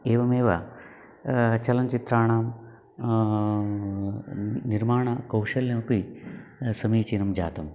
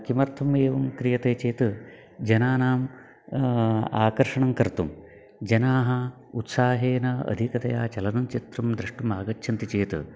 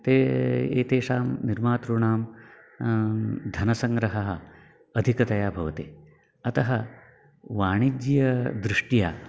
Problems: none marked